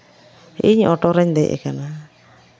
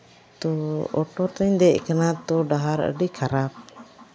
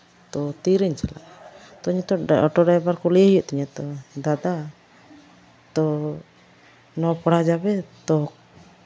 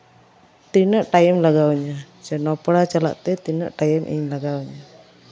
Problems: background sounds at intervals